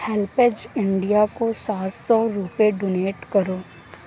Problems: constant background noise